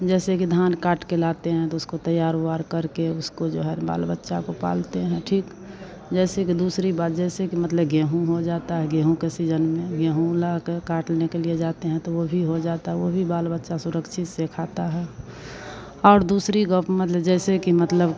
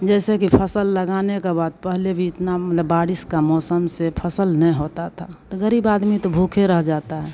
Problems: constant background noise